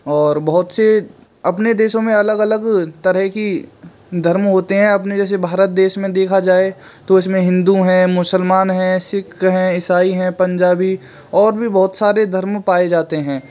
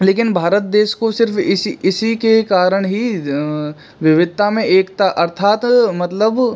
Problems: background sounds at intervals